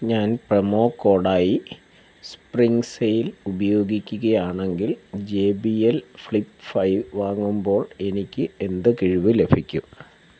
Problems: none marked